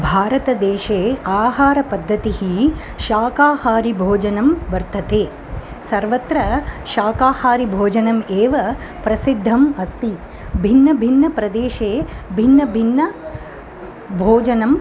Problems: none marked